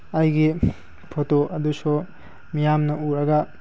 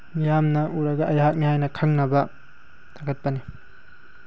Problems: background sounds at intervals